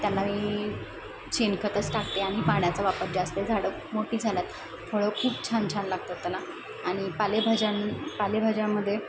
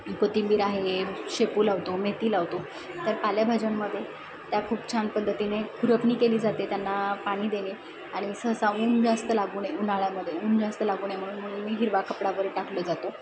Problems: none marked